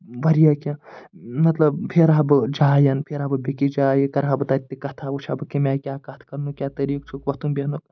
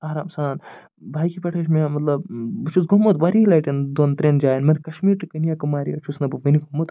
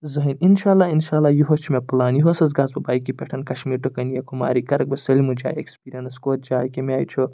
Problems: none marked